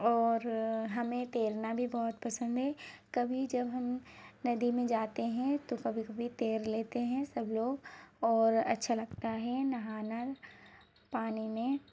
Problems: none marked